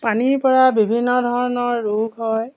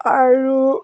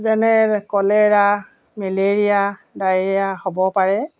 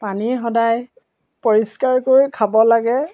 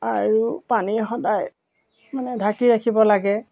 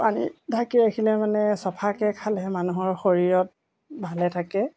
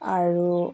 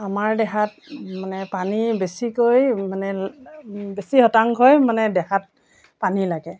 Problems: background sounds at intervals